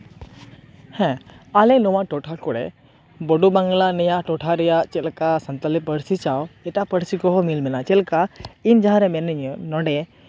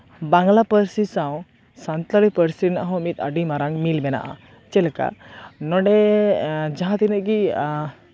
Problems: background conversations at intervals